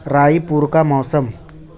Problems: constant background noise